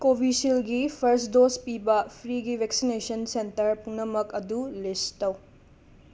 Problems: background sounds at intervals